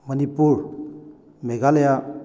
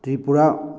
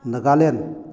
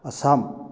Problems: background sounds at intervals